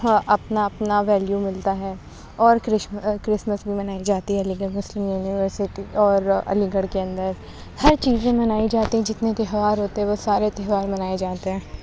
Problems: constant background noise